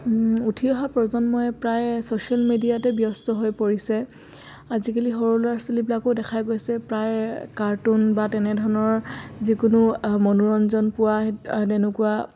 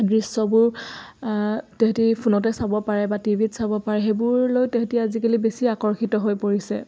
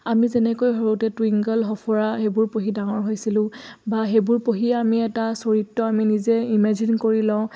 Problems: constant background noise, background conversations at intervals